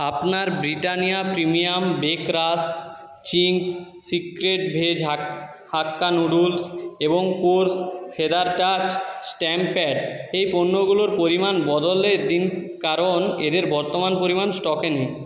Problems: echo